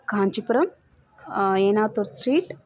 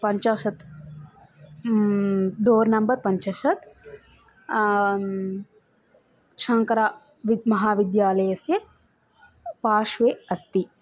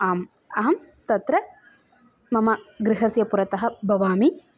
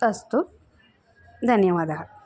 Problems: constant background noise